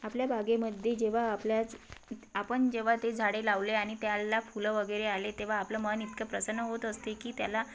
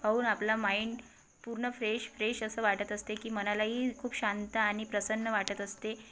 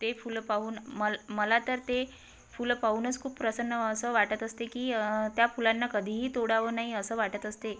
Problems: background sounds at intervals